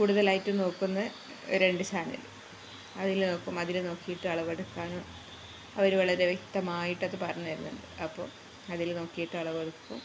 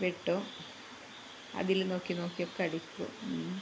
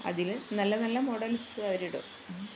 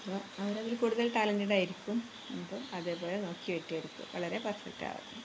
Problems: constant background noise, low volume